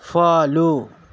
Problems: constant background noise